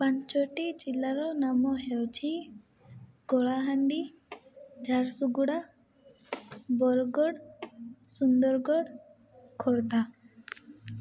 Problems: background sounds at intervals, low volume